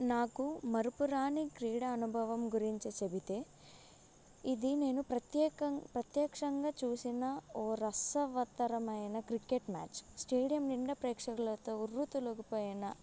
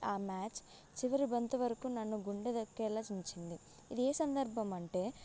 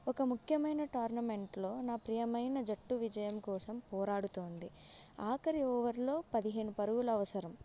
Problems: none marked